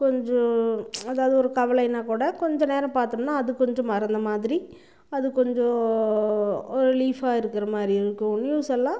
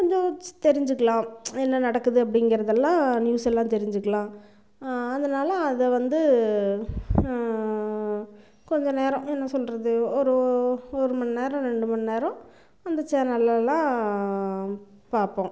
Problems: none marked